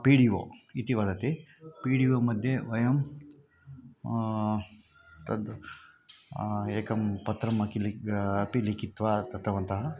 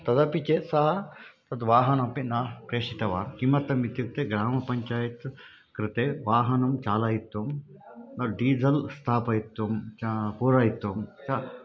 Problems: background conversations at intervals